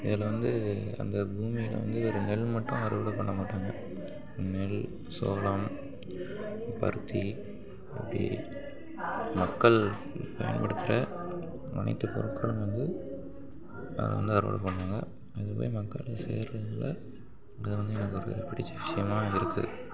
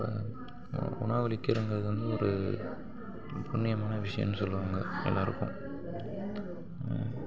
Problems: background sounds at intervals, continuous background conversations